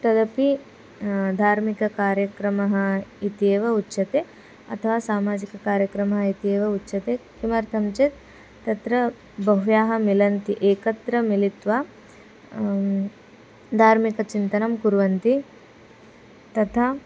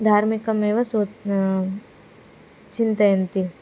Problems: none marked